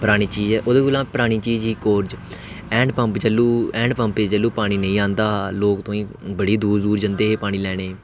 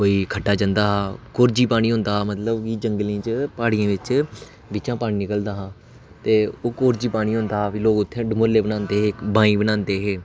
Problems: constant background noise